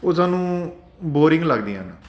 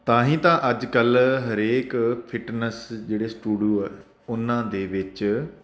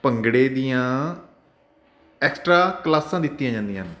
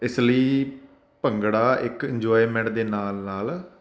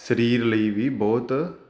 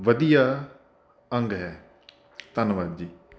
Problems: constant background noise